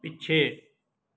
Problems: none marked